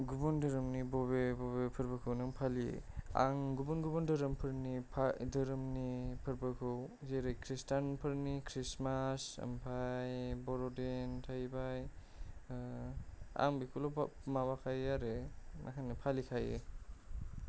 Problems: low volume